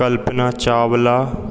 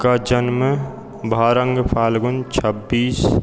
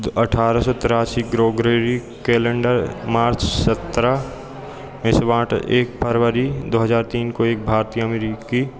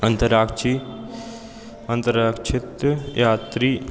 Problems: none marked